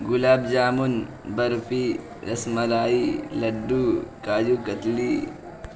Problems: constant background noise